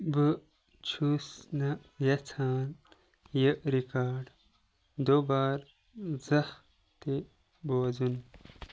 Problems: none marked